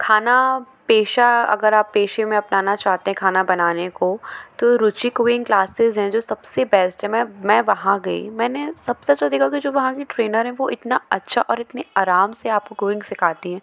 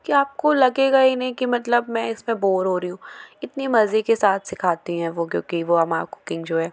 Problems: background sounds at intervals